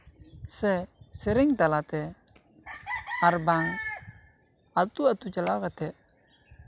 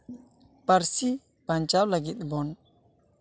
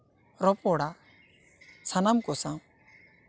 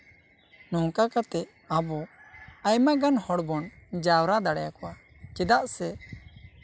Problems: constant background noise, continuous background conversations